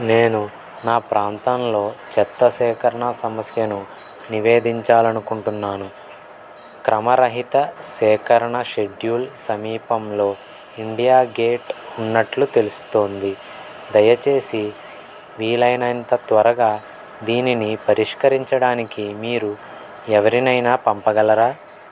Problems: constant background noise